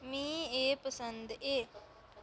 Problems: low volume